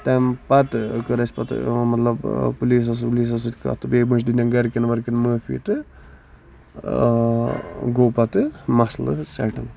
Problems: constant background noise